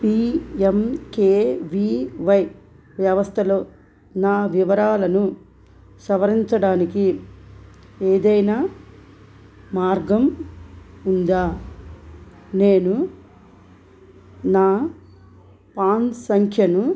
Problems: background sounds at intervals